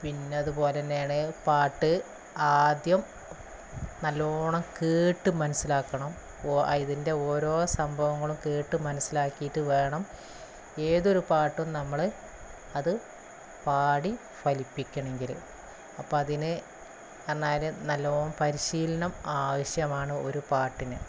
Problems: constant background noise